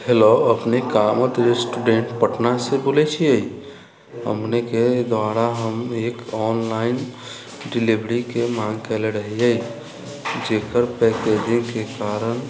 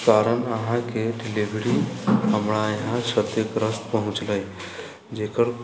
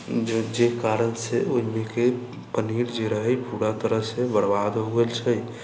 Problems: constant background noise